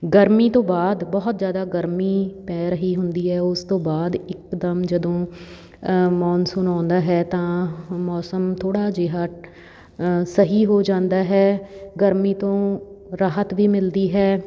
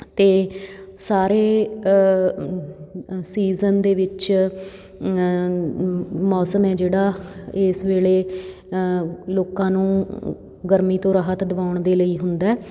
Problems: background sounds at intervals, background conversations at intervals